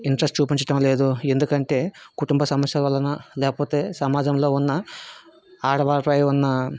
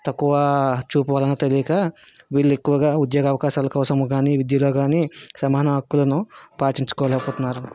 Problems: background sounds at intervals